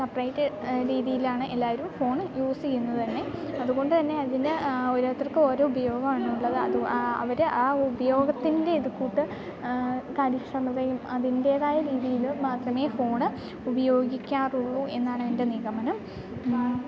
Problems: background sounds at intervals